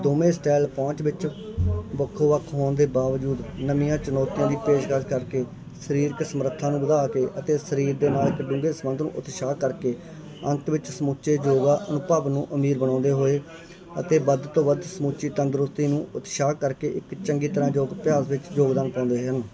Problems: continuous background conversations